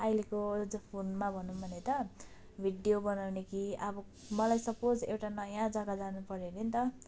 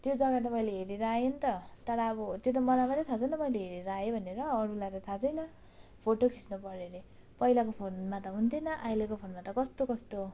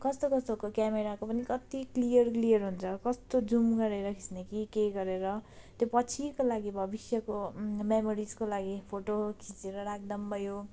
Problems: none marked